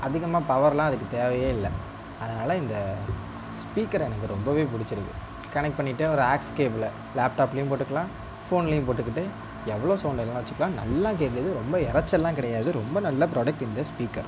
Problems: constant background noise